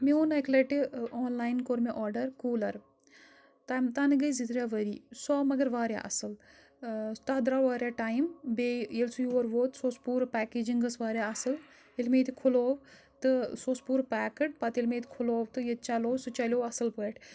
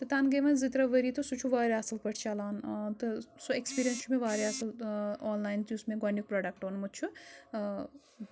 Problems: background sounds at intervals